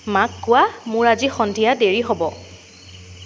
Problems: constant background noise